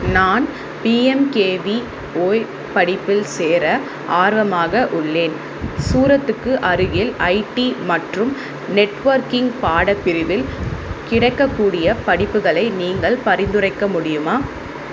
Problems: constant background noise